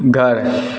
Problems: none marked